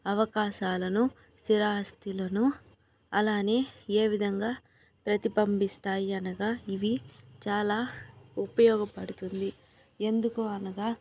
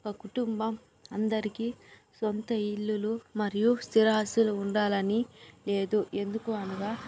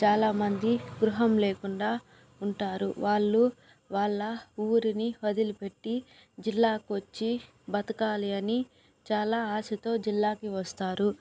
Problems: background sounds at intervals